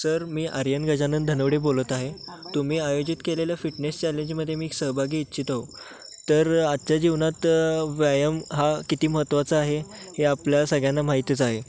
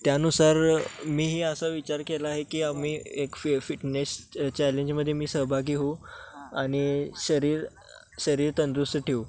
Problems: none marked